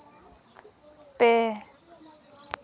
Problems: constant background noise